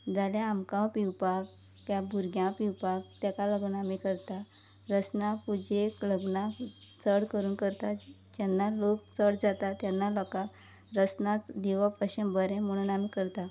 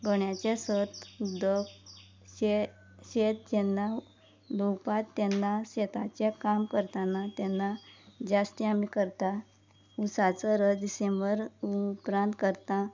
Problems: background conversations at intervals, low volume